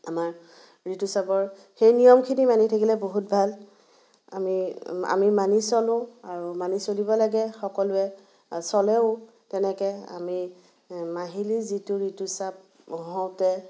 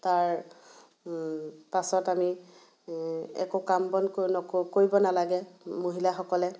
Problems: constant background noise